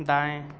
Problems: none marked